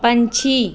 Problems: none marked